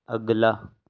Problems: background sounds at intervals, low volume